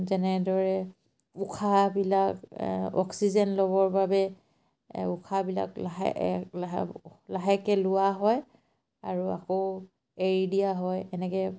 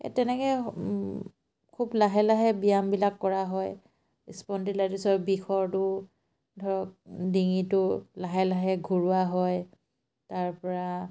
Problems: none marked